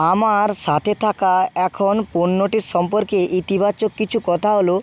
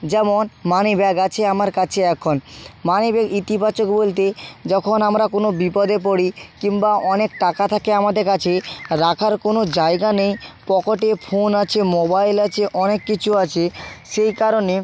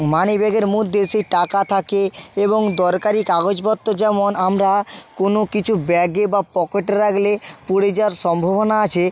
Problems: background sounds at intervals